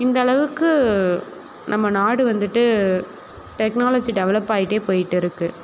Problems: background conversations at intervals